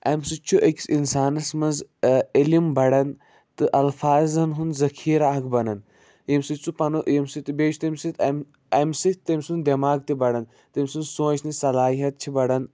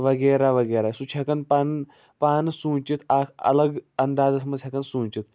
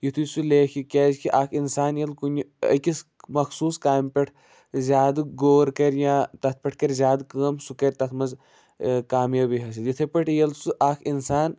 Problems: none marked